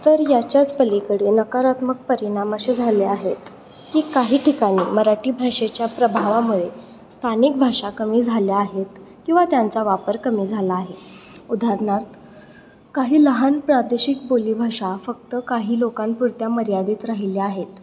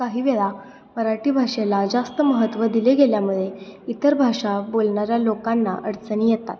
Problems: none marked